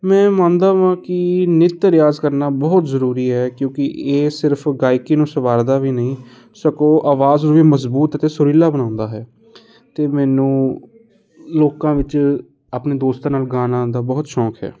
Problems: none marked